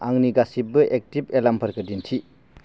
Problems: constant background noise